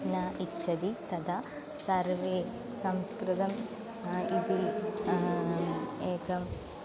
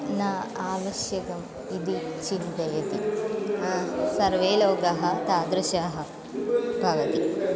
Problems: none marked